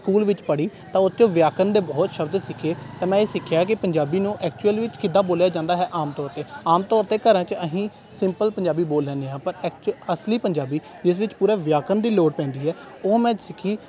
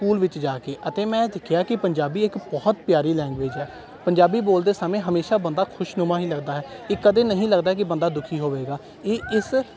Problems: background sounds at intervals